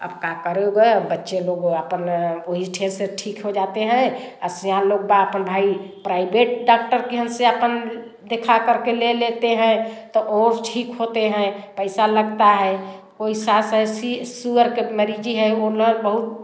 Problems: constant background noise, background conversations at intervals, echo